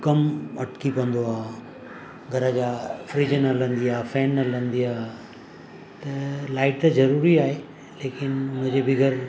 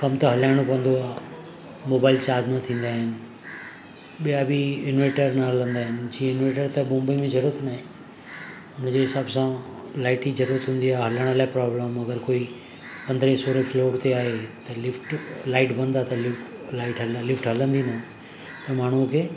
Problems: constant background noise